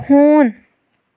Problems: none marked